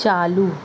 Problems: constant background noise